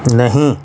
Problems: none marked